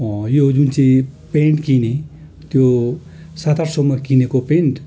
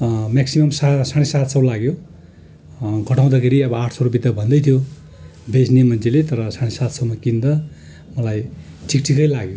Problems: continuous background conversations